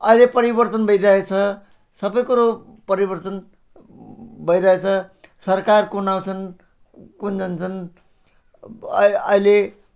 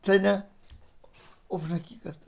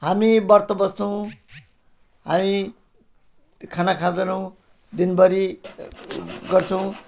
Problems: background sounds at intervals